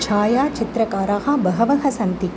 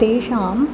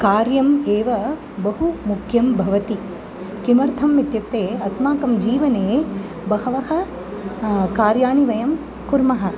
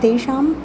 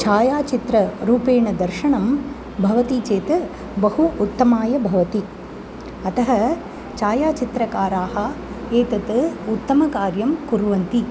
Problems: continuous background conversations